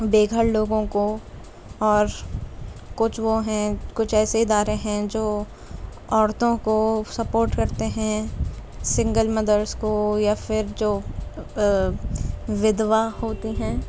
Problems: constant background noise